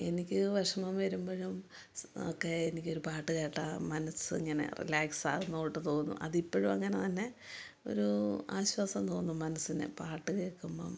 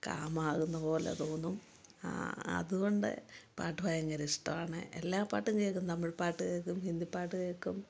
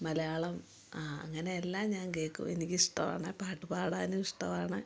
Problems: low volume